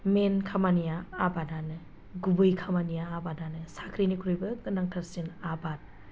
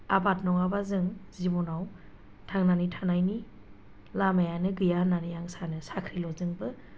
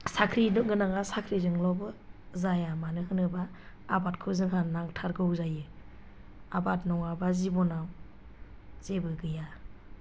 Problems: low volume